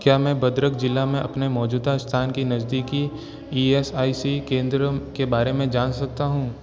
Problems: none marked